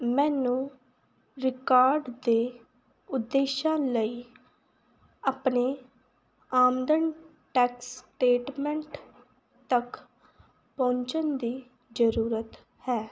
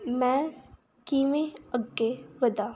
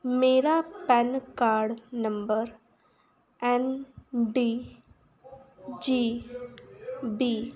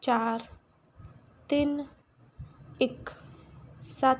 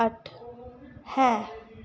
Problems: continuous background conversations